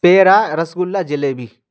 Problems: none marked